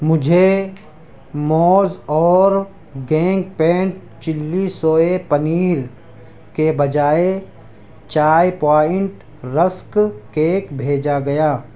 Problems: constant background noise